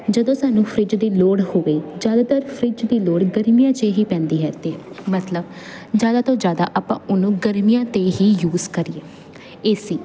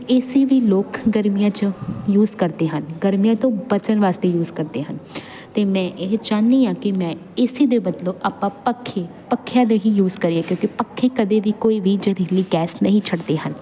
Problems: constant background noise